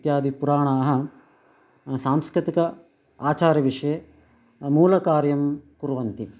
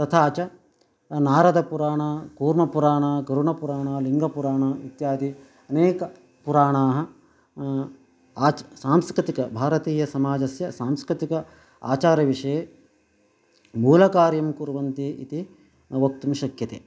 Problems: none marked